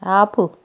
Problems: none marked